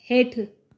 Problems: none marked